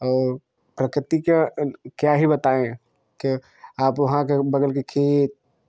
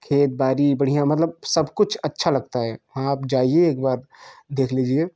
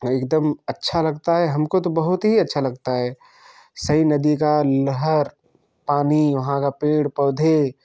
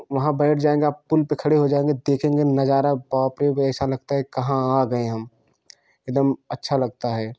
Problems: constant background noise